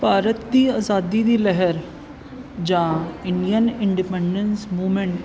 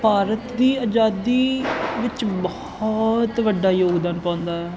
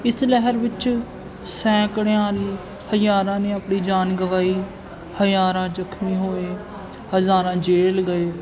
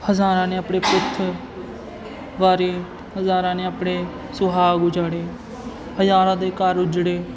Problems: constant background noise